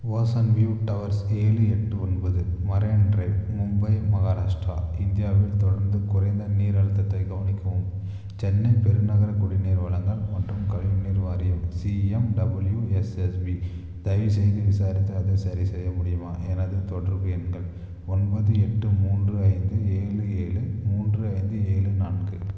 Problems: constant background noise, low volume